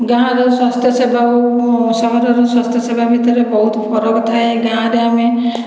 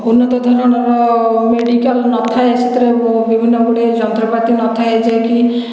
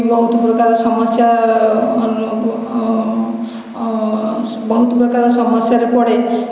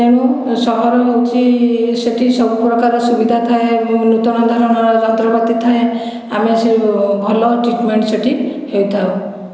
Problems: none marked